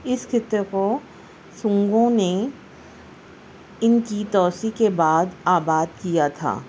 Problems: constant background noise